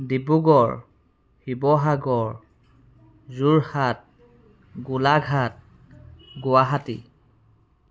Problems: background sounds at intervals